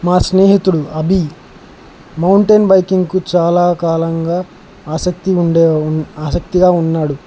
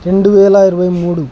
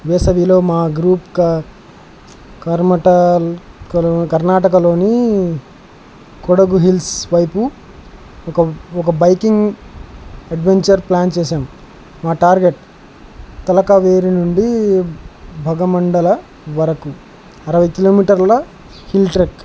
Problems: constant background noise